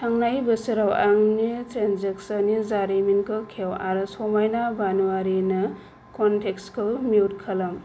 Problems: low volume